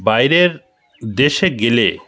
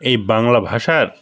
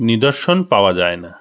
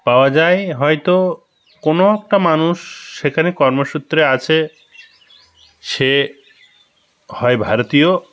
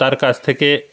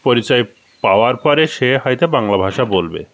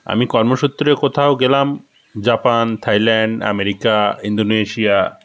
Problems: constant background noise, background conversations at intervals